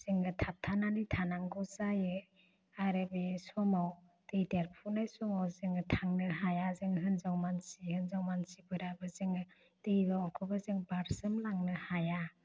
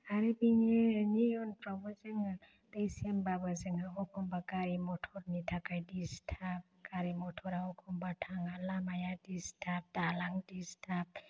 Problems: low volume